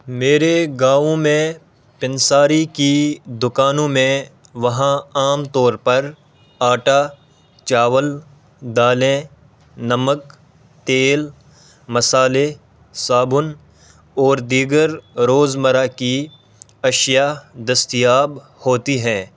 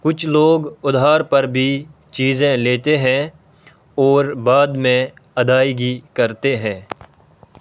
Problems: background sounds at intervals